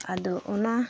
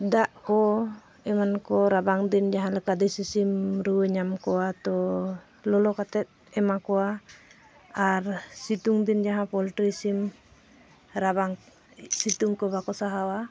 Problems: constant background noise